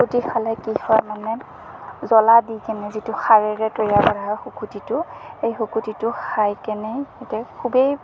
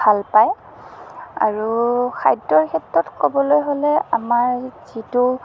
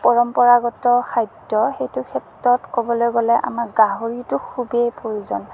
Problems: constant background noise, low volume